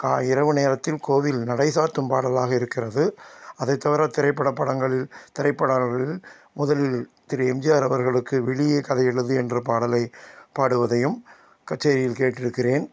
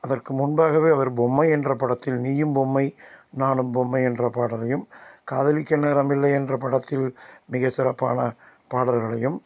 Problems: constant background noise